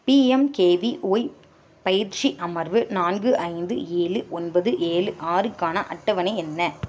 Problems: none marked